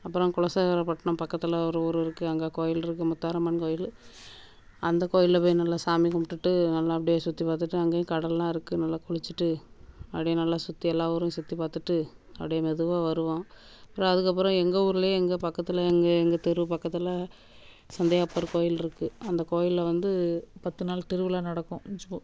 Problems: background sounds at intervals